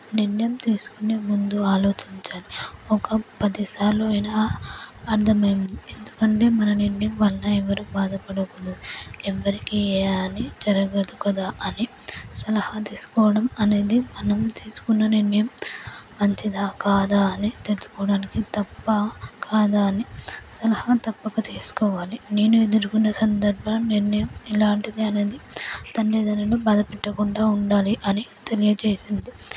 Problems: low volume